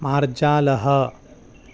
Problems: background sounds at intervals